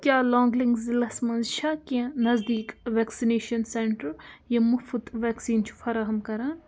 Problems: constant background noise